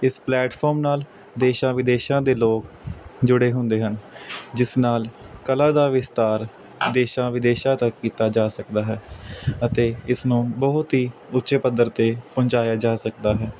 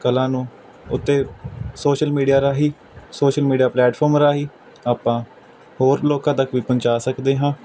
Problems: constant background noise